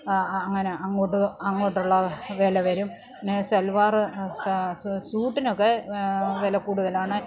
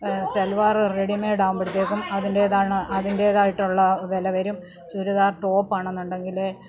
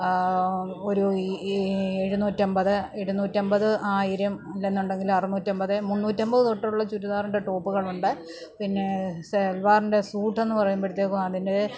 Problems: none marked